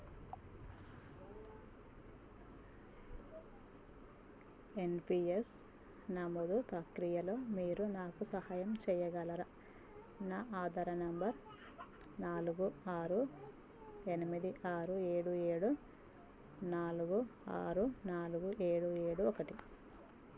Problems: low volume